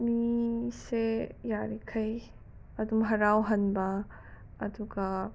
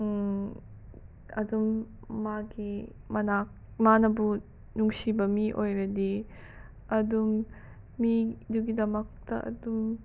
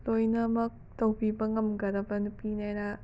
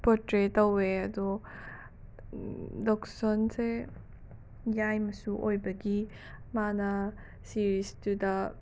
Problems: background sounds at intervals